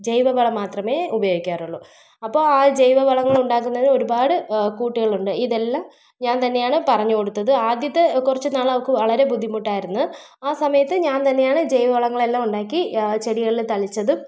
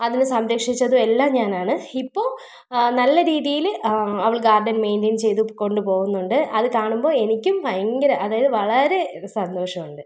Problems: none marked